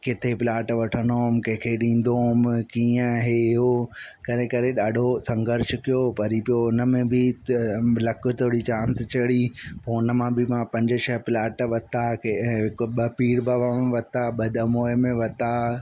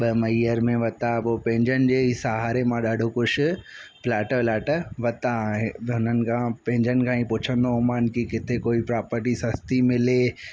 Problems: constant background noise